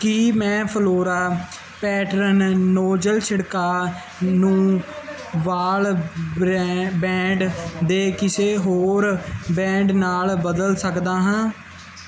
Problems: background conversations at intervals